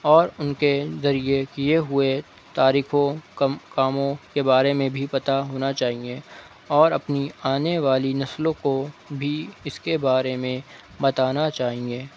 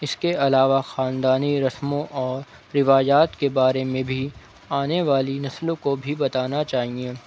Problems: none marked